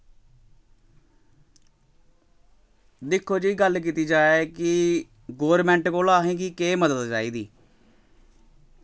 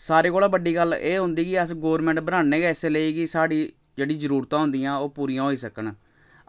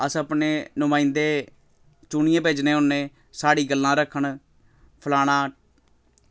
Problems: background sounds at intervals